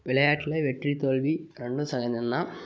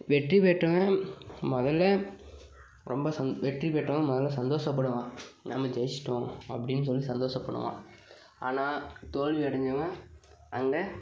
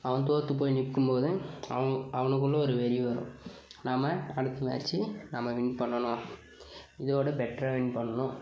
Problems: background conversations at intervals